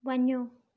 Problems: none marked